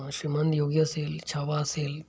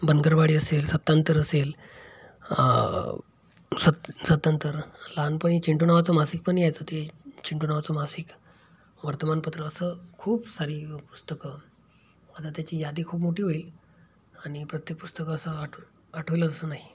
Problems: background sounds at intervals